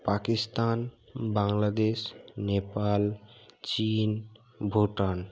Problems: constant background noise